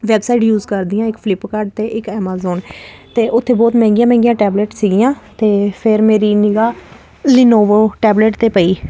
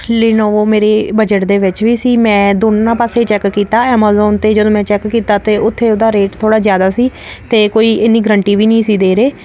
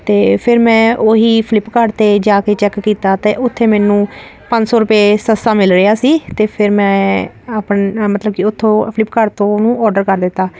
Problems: none marked